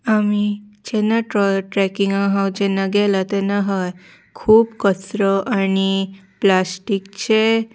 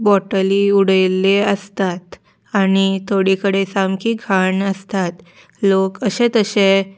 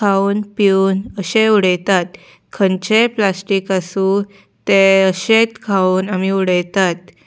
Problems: background sounds at intervals